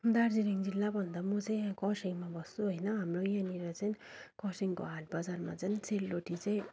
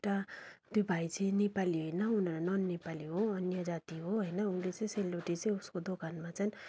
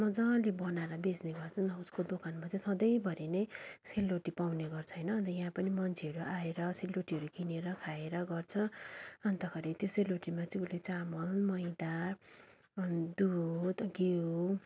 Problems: continuous background conversations